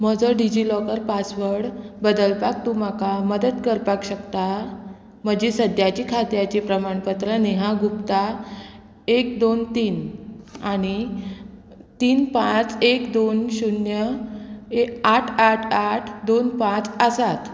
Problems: constant background noise